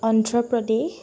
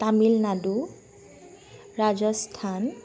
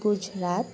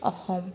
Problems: constant background noise